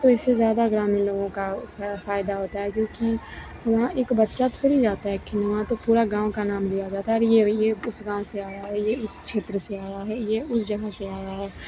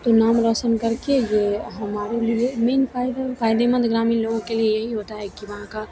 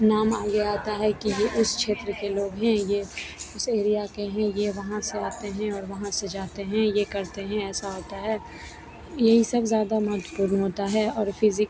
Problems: constant background noise